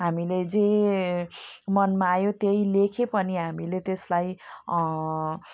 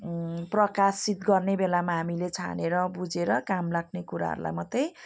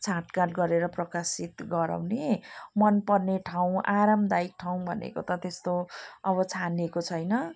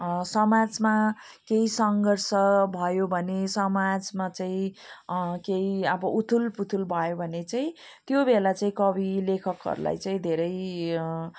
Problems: none marked